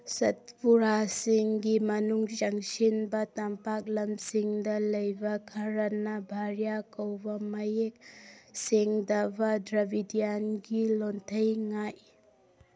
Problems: none marked